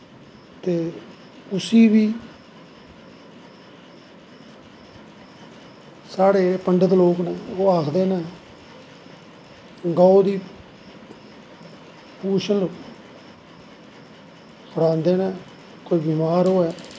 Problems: constant background noise, echo